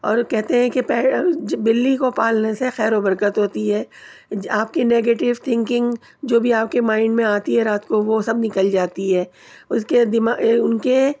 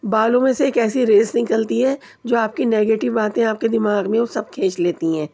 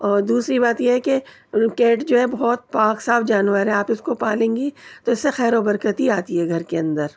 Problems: background sounds at intervals